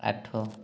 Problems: low volume